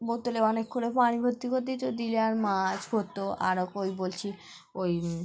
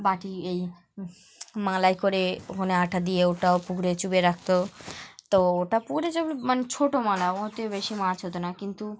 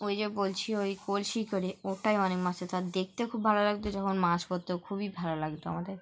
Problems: background sounds at intervals